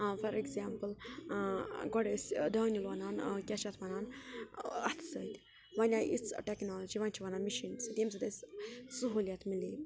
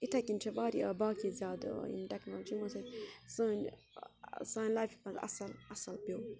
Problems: background conversations at intervals